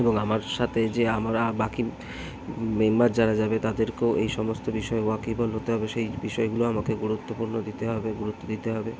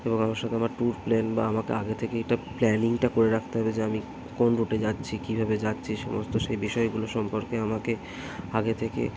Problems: constant background noise, background conversations at intervals